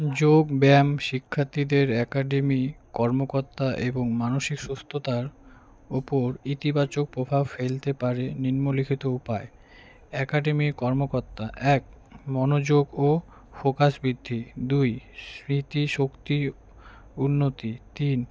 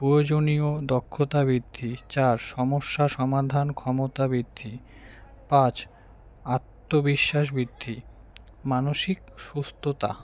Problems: none marked